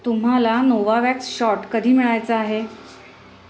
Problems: none marked